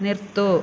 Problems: none marked